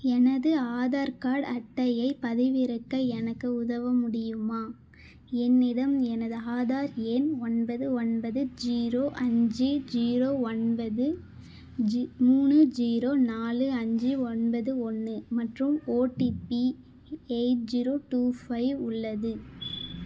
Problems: background sounds at intervals